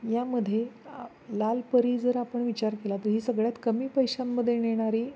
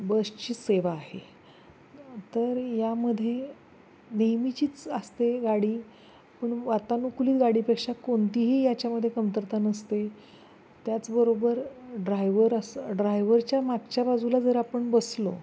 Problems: constant background noise